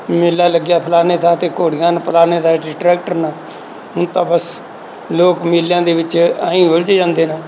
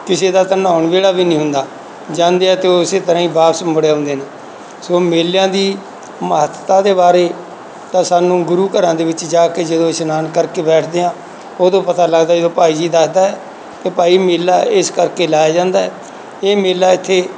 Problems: none marked